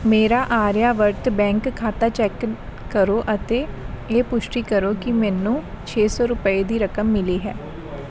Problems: continuous background conversations